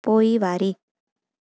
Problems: none marked